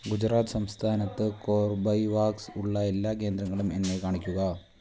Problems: low volume